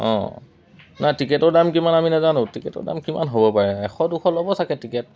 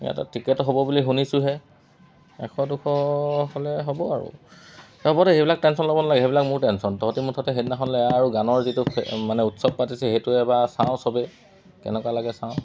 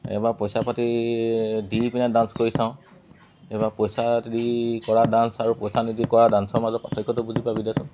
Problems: none marked